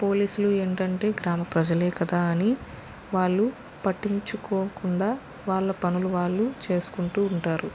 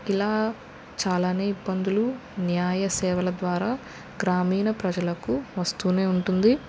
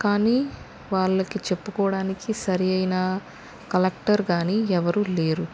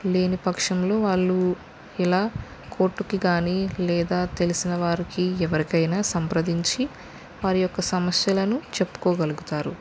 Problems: constant background noise